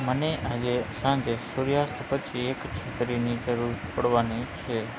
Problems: constant background noise, low volume